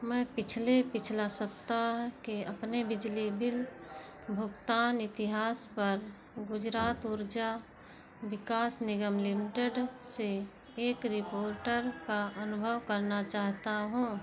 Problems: background sounds at intervals